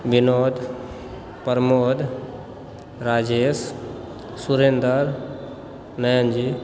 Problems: none marked